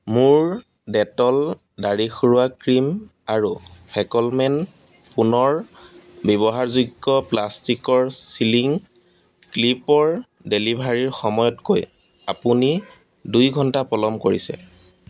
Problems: background sounds at intervals